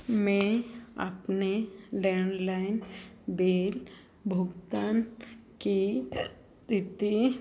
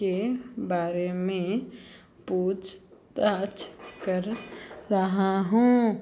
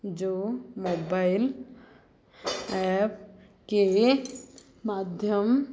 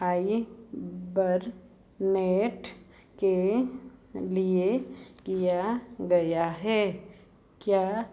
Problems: none marked